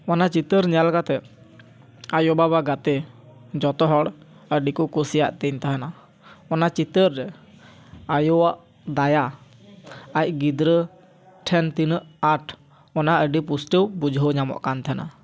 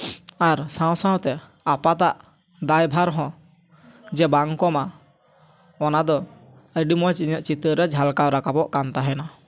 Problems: none marked